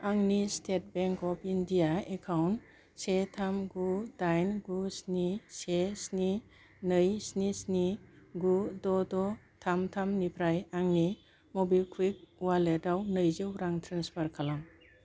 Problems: low volume